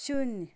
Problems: background sounds at intervals